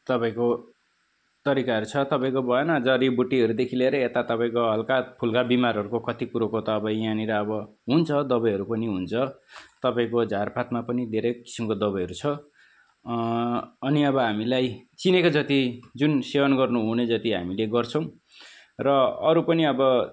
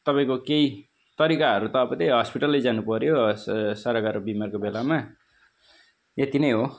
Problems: constant background noise